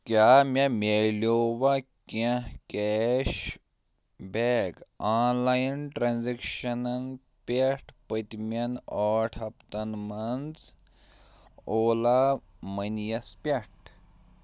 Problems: none marked